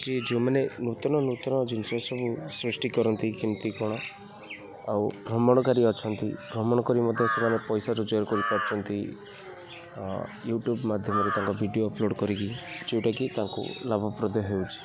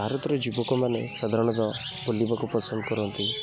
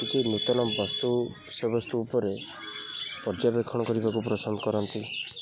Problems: constant background noise, continuous background conversations